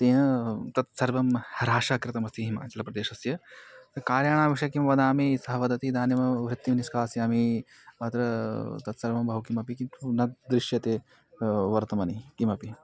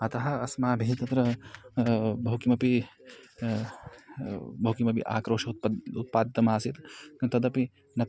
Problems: background conversations at intervals